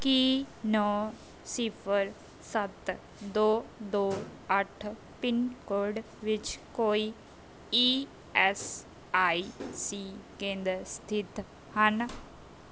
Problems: background sounds at intervals